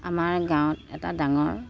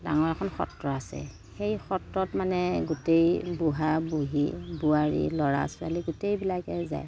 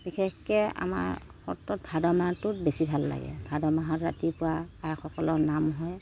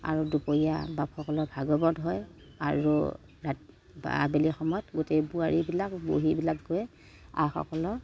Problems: none marked